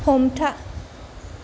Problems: low volume